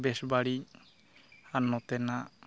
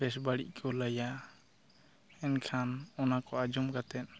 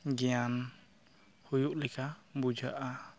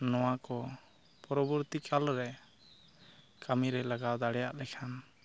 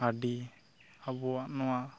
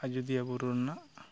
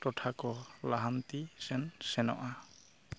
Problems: none marked